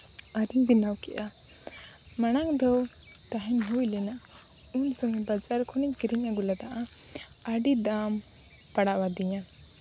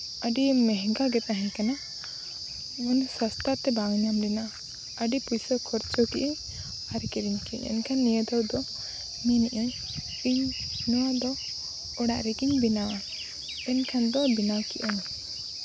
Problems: constant background noise